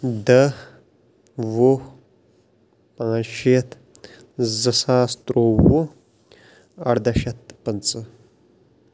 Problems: background sounds at intervals